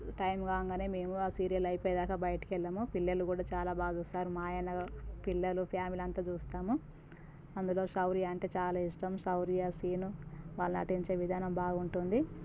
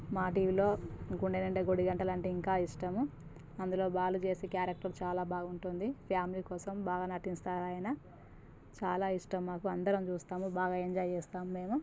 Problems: constant background noise, low volume